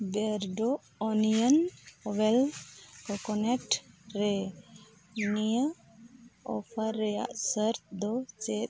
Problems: background sounds at intervals